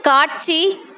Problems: constant background noise